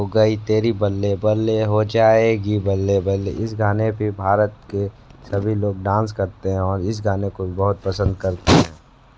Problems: constant background noise